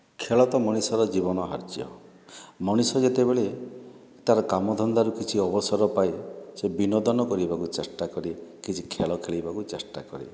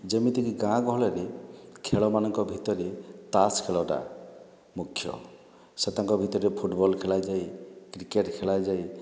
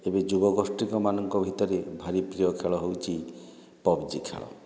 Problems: none marked